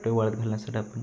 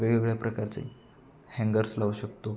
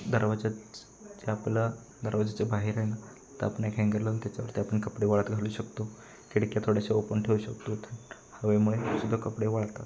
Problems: constant background noise, continuous background conversations